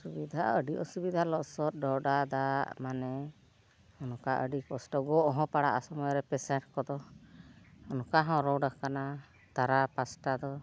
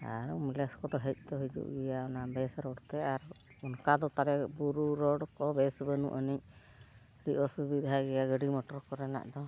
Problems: background sounds at intervals, background conversations at intervals